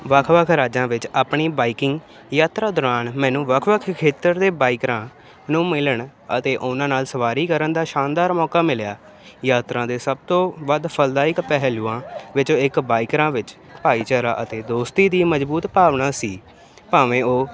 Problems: constant background noise